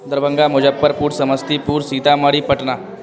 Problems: constant background noise